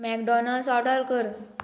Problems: constant background noise